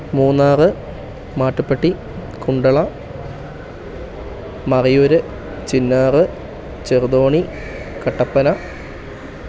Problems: none marked